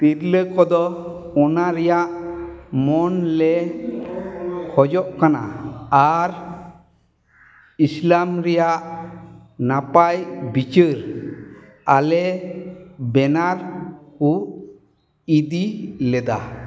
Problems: background sounds at intervals, echo